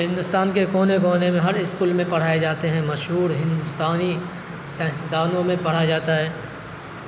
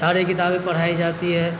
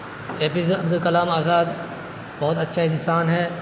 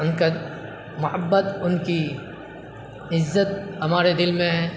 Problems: constant background noise